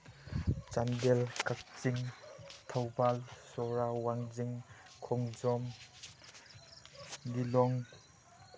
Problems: none marked